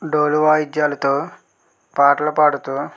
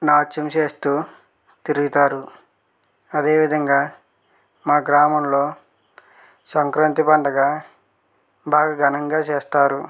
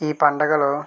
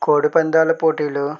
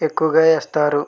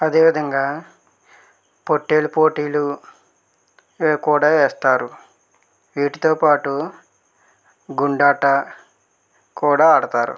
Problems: none marked